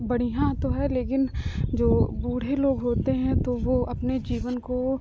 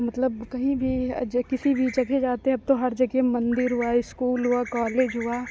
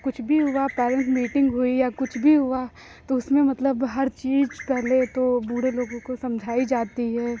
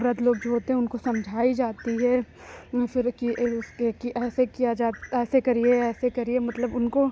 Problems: none marked